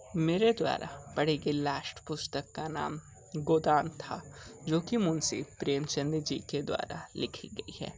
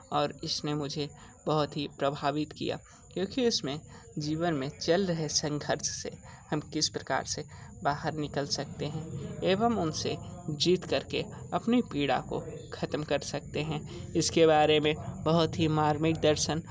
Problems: background sounds at intervals, background conversations at intervals